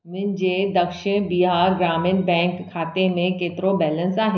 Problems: echo